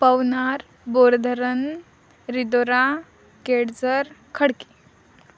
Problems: none marked